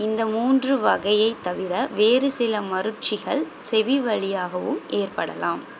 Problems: constant background noise